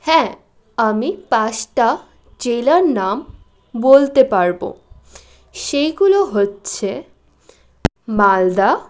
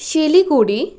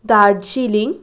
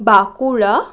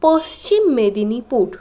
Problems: none marked